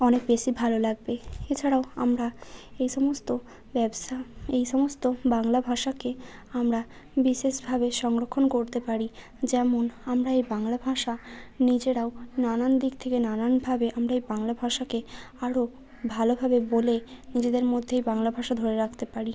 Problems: none marked